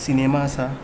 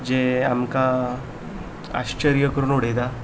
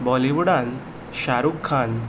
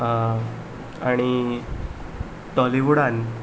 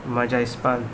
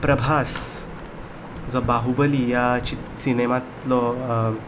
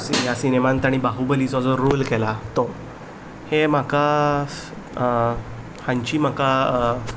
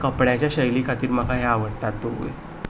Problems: background sounds at intervals